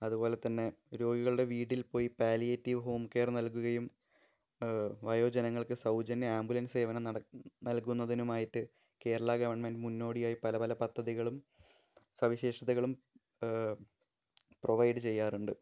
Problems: low volume